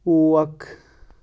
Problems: constant background noise